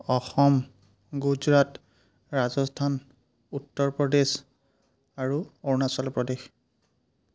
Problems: background sounds at intervals